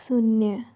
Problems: low volume